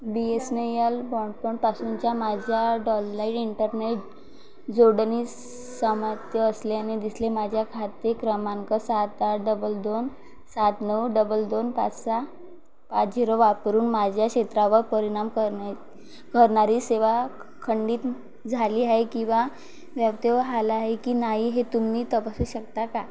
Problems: constant background noise, background conversations at intervals